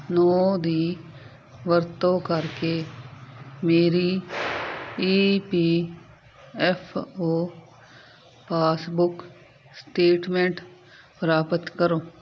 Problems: constant background noise